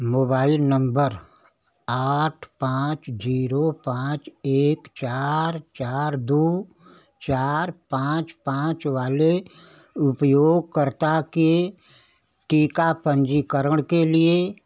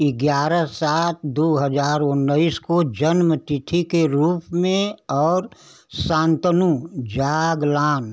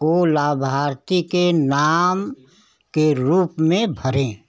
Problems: constant background noise